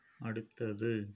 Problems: low volume